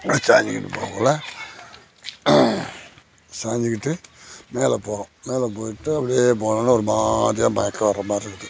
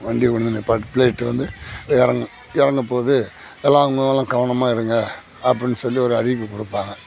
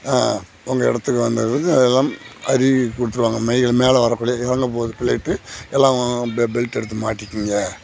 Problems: none marked